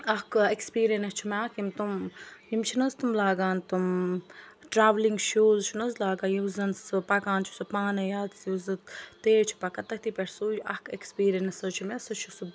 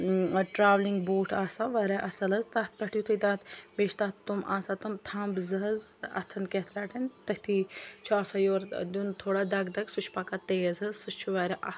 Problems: none marked